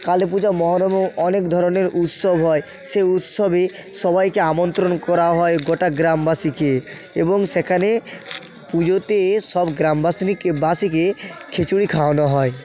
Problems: continuous background conversations